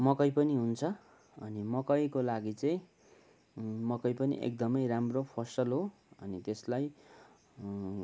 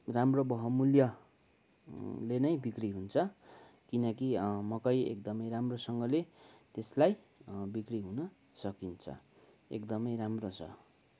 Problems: background sounds at intervals